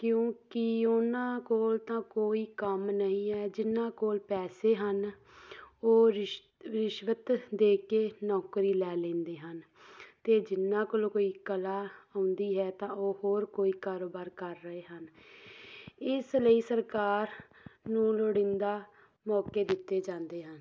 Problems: background sounds at intervals